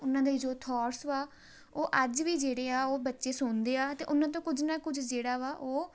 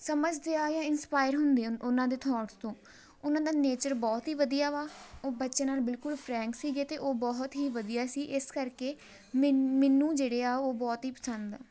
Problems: background sounds at intervals